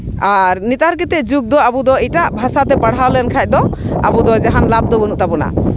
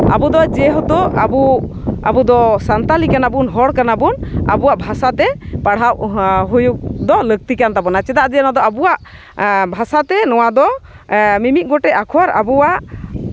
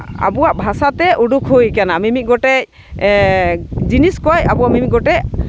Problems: background sounds at intervals